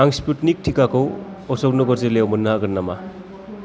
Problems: constant background noise, background conversations at intervals